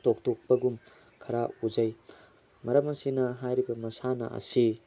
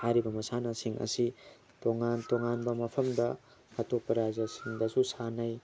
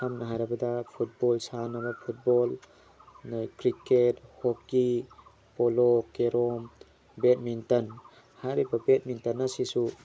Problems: background sounds at intervals